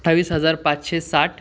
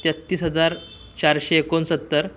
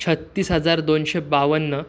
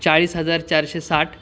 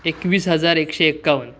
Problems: background sounds at intervals